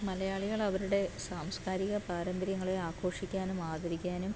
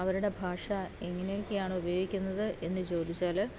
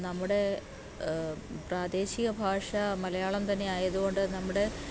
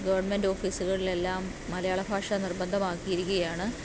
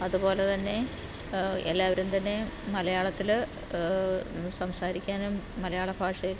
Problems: background sounds at intervals